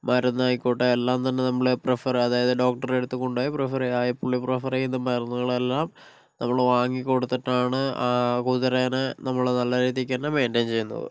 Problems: none marked